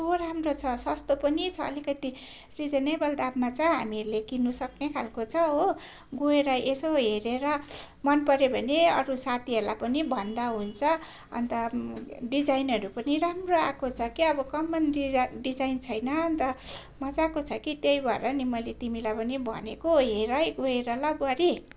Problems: constant background noise